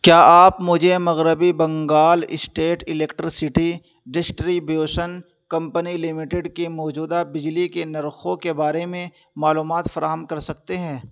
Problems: constant background noise